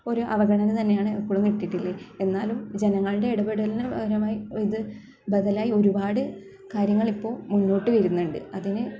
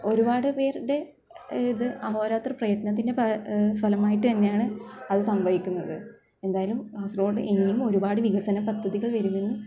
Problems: none marked